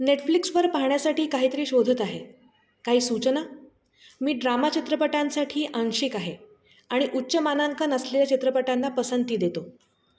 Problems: constant background noise